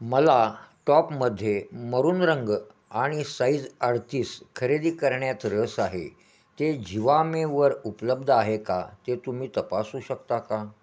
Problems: constant background noise, echo